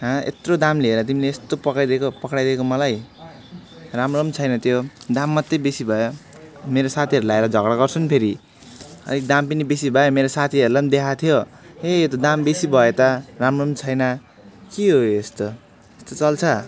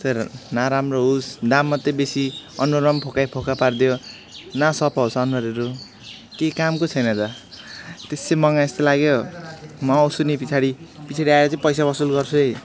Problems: background sounds at intervals, background conversations at intervals